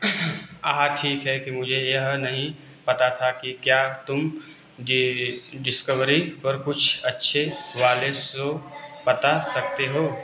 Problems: constant background noise